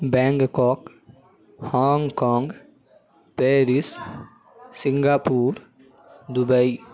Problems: none marked